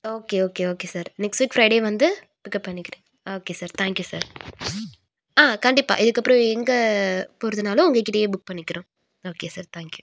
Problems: none marked